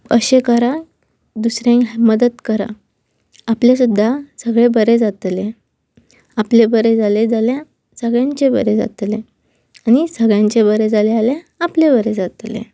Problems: constant background noise